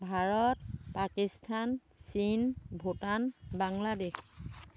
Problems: none marked